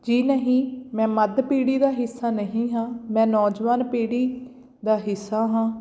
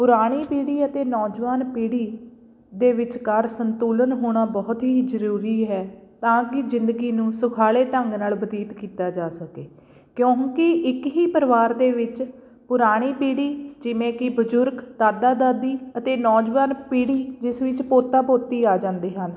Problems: background sounds at intervals